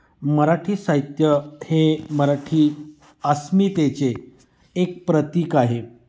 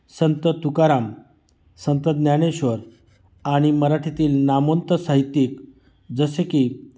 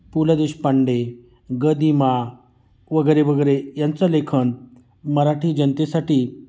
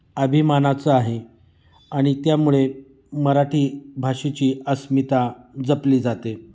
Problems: constant background noise, echo